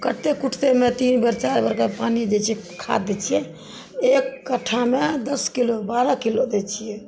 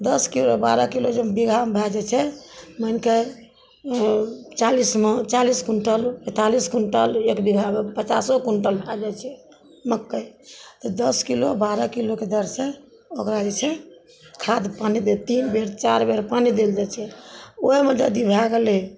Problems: background sounds at intervals